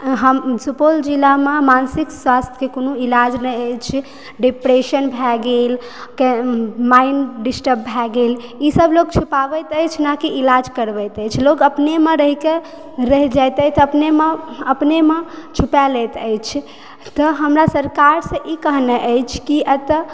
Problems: background sounds at intervals